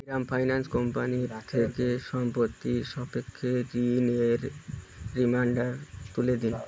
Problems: continuous background conversations